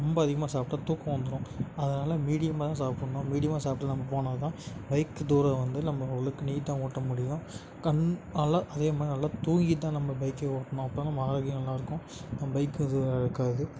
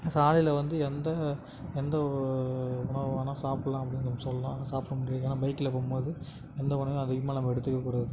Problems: none marked